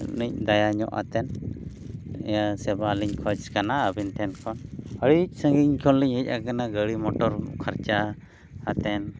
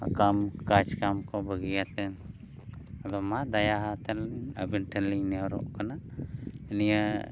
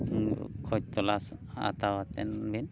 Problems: background sounds at intervals